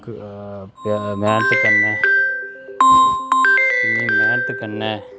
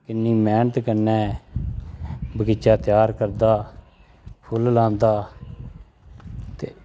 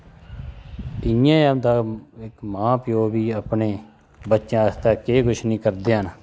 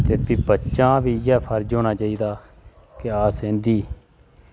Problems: constant background noise